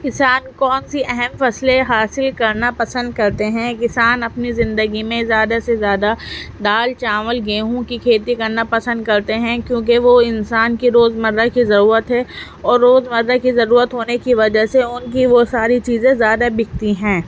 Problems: background sounds at intervals